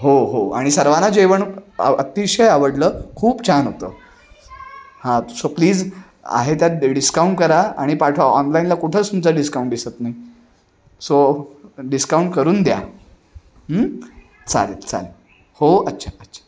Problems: background sounds at intervals, continuous background conversations